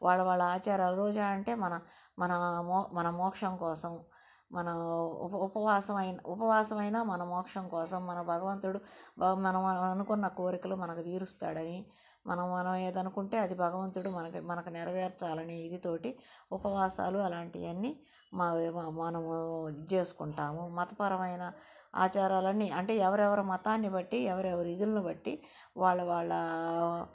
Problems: none marked